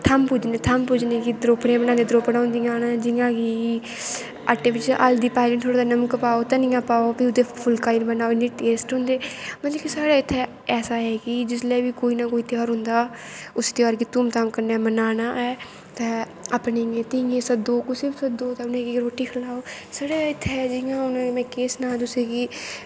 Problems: constant background noise